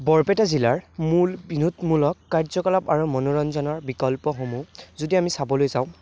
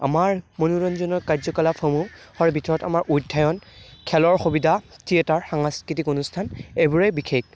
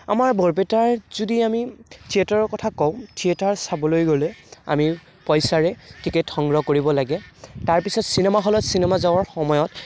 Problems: background conversations at intervals